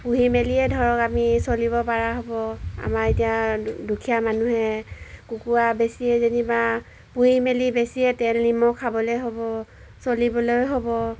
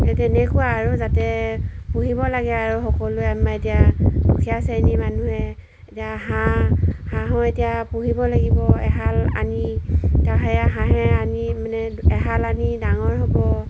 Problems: background sounds at intervals